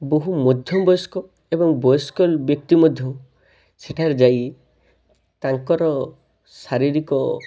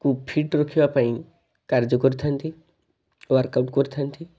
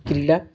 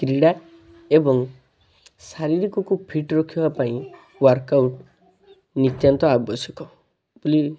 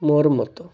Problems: constant background noise, continuous background conversations